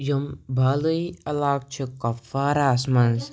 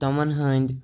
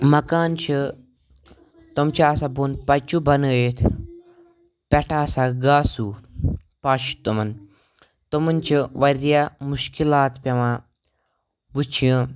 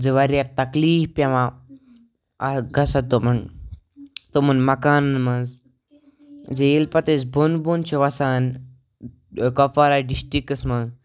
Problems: background sounds at intervals